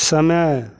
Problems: none marked